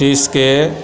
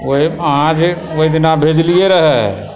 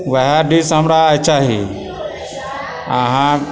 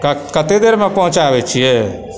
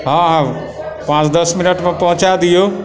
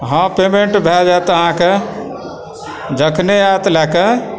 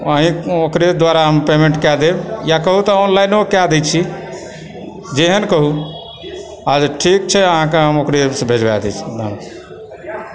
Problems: continuous background conversations